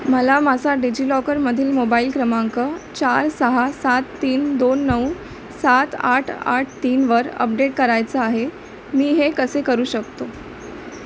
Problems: constant background noise